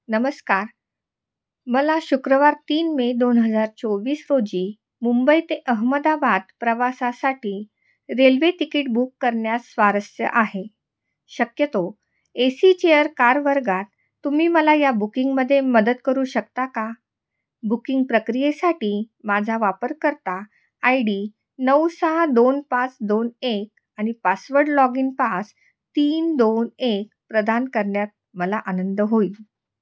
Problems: background sounds at intervals, echo